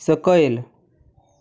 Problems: none marked